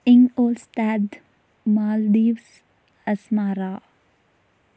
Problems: none marked